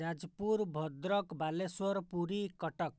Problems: low volume